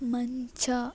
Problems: background sounds at intervals